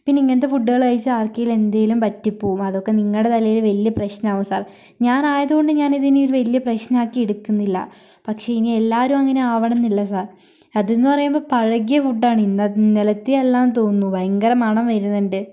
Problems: none marked